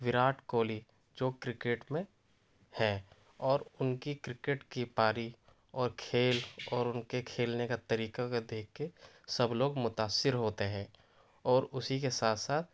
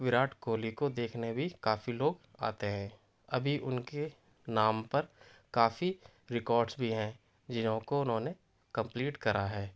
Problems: none marked